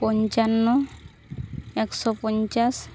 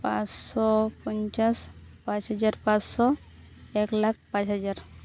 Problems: constant background noise